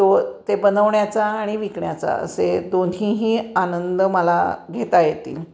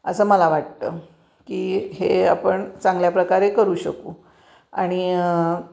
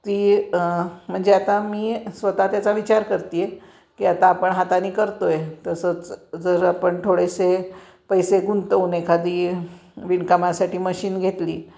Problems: background sounds at intervals